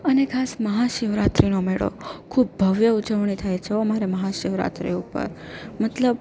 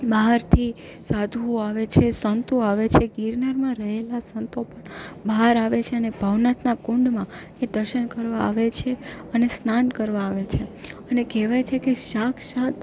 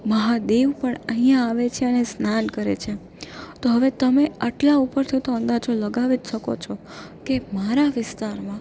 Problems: none marked